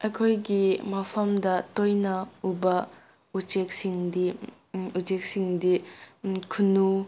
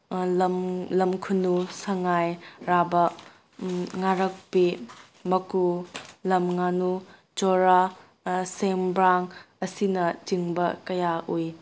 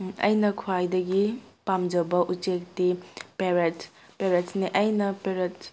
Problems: none marked